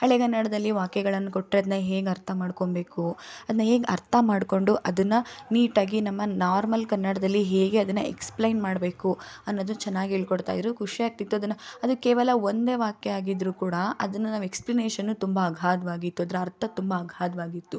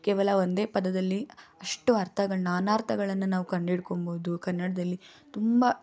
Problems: none marked